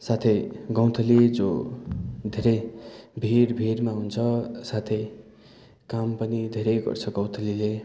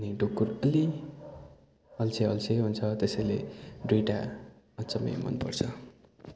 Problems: background conversations at intervals